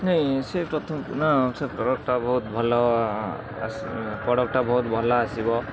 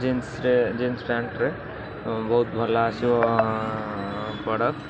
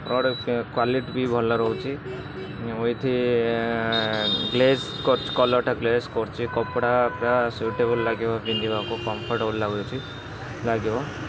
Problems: constant background noise, continuous background conversations